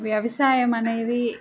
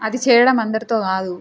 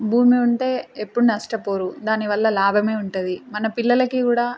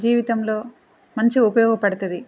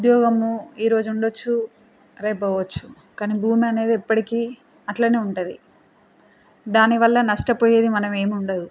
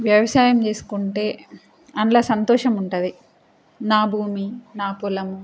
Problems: constant background noise